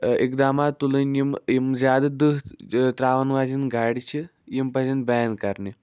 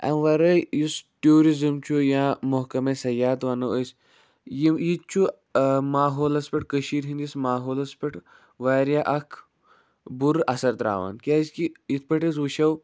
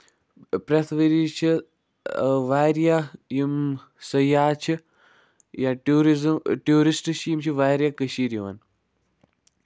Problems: none marked